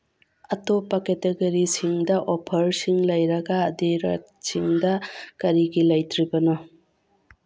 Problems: background sounds at intervals